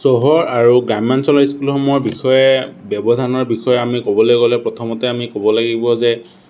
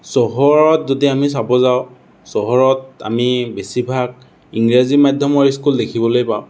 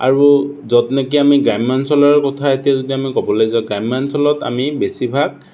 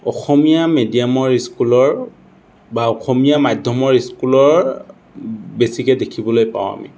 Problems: none marked